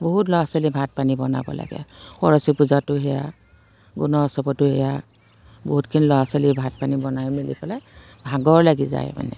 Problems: constant background noise